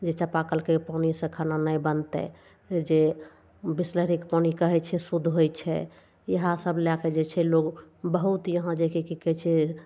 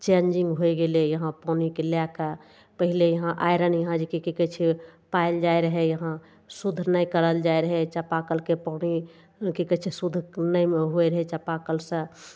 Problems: none marked